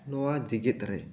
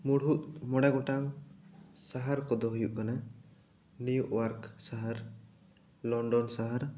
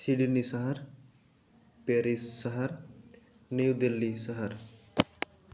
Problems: background conversations at intervals